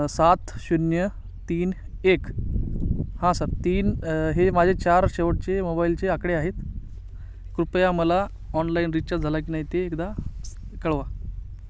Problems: none marked